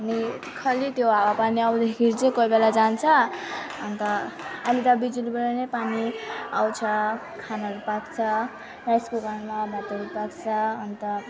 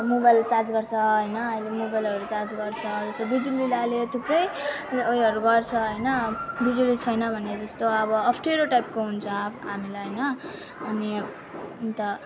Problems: continuous background conversations